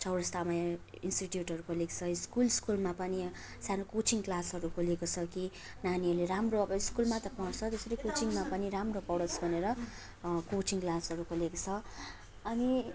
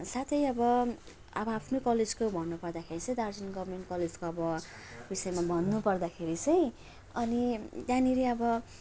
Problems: none marked